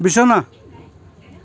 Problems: background sounds at intervals